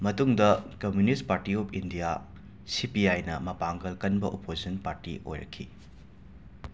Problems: background sounds at intervals